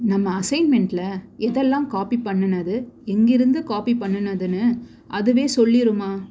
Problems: constant background noise